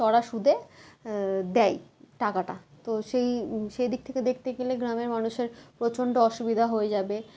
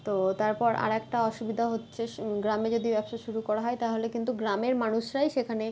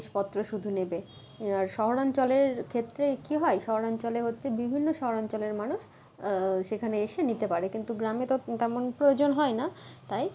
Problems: background sounds at intervals